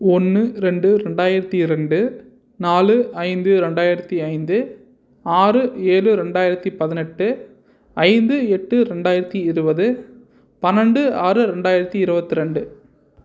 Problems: none marked